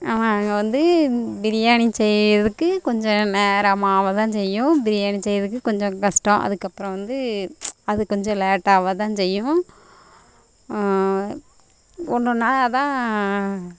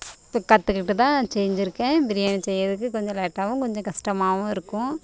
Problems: constant background noise